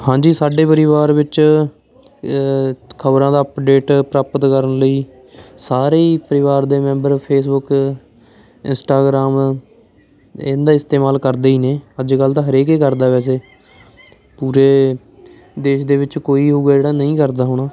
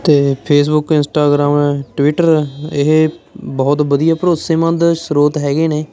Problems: constant background noise, background conversations at intervals